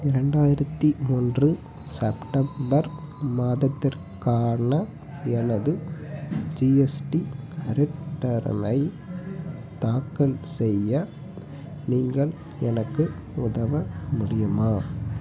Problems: none marked